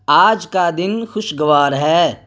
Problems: constant background noise